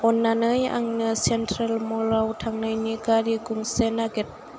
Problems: constant background noise